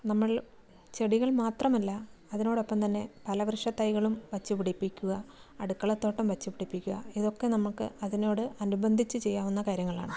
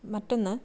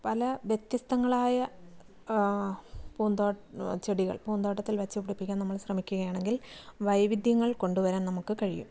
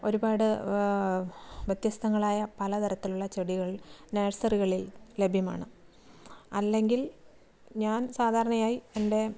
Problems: low volume